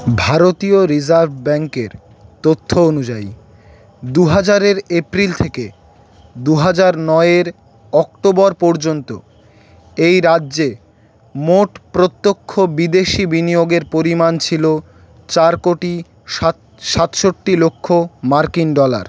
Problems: none marked